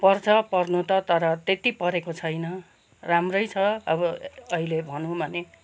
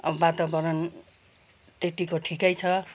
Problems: constant background noise